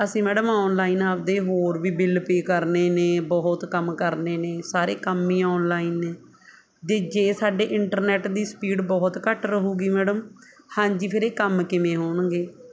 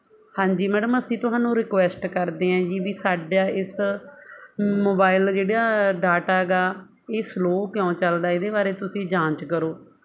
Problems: none marked